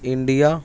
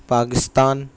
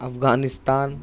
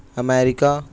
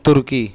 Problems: none marked